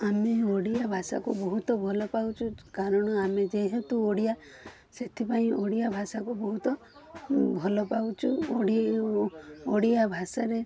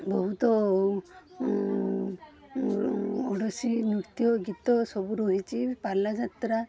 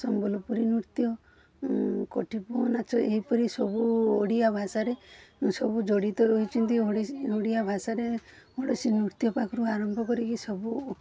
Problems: background sounds at intervals